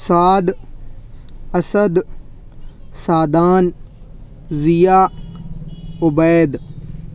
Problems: background sounds at intervals